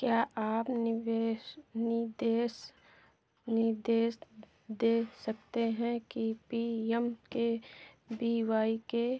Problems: none marked